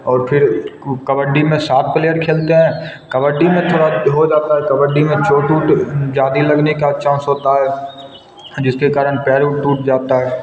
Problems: none marked